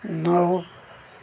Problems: background conversations at intervals